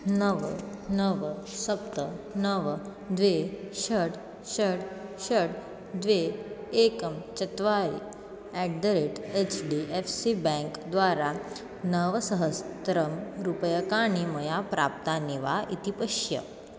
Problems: none marked